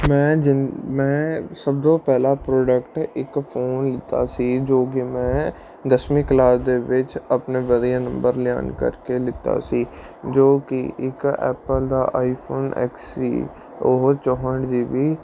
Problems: none marked